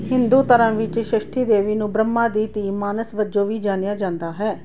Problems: none marked